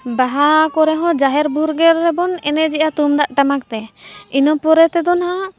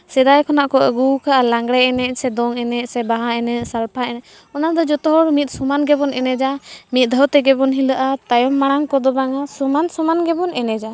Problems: background sounds at intervals, background conversations at intervals